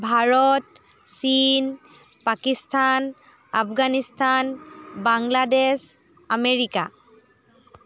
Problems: none marked